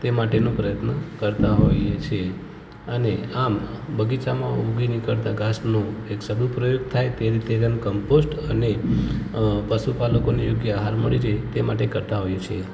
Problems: background sounds at intervals, continuous background conversations